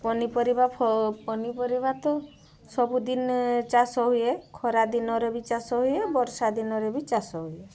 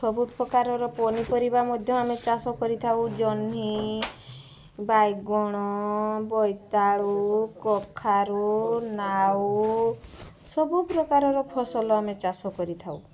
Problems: constant background noise, continuous background conversations